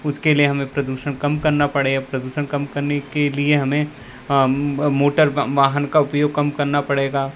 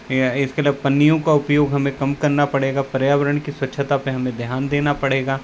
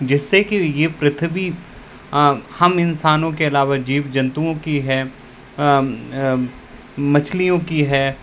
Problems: none marked